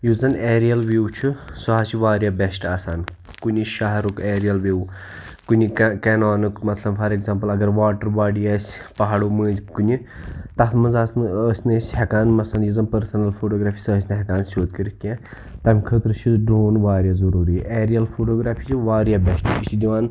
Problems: background sounds at intervals